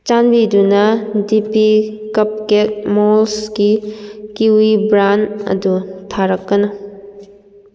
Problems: echo